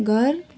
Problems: continuous background conversations